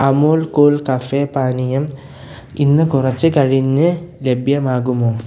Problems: none marked